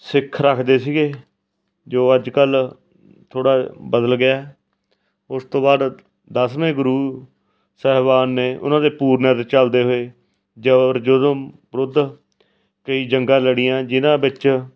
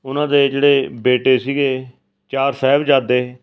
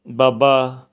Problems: background sounds at intervals